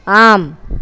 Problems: constant background noise, continuous background conversations